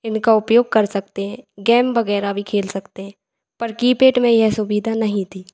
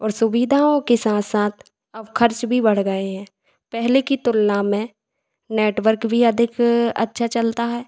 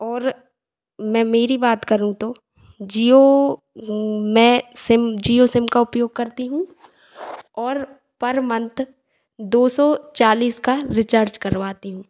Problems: echo